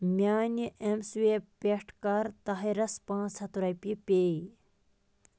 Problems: constant background noise